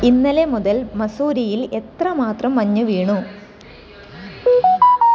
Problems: background sounds at intervals